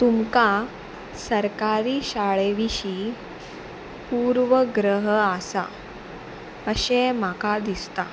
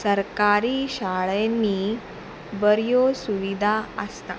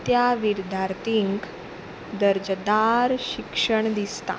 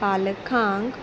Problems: none marked